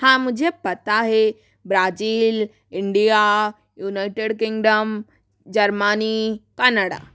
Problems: none marked